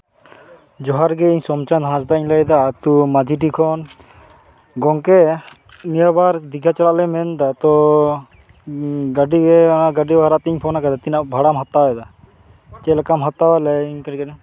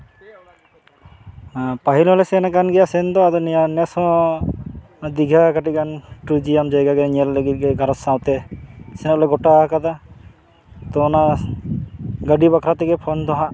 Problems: constant background noise, continuous background conversations